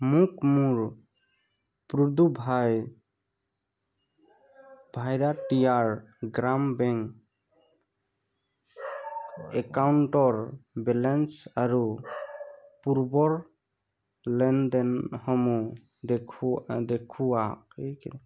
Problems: none marked